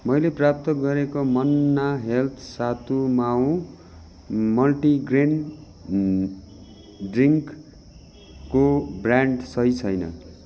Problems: background sounds at intervals